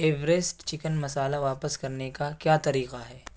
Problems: none marked